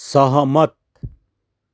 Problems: none marked